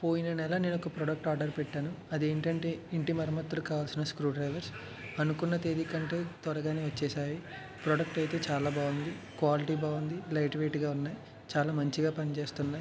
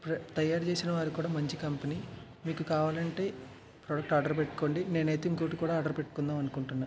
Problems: none marked